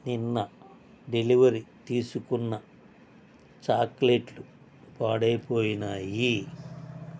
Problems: constant background noise